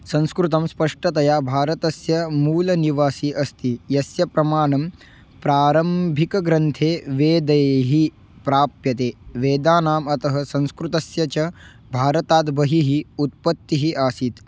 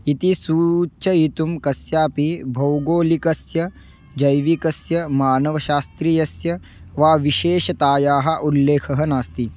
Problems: background sounds at intervals